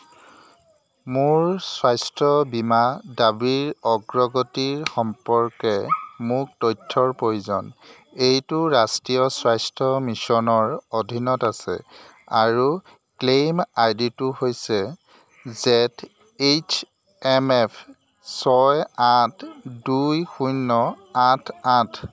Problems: constant background noise, background conversations at intervals